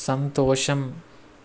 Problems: constant background noise